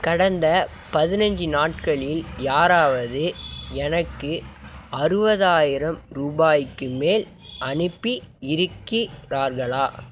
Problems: none marked